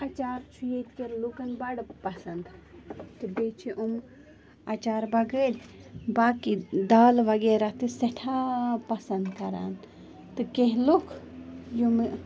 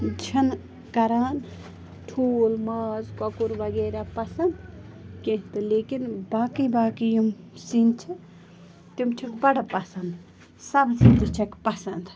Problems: constant background noise, continuous background conversations